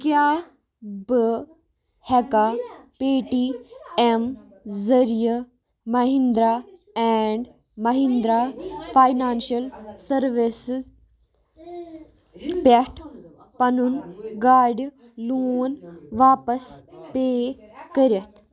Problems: background sounds at intervals, continuous background conversations